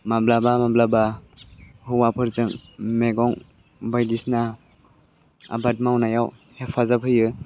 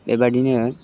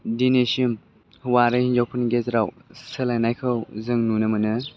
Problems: low volume